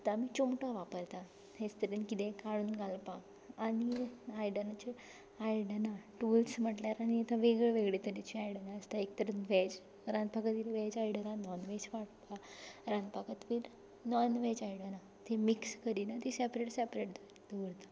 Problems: background sounds at intervals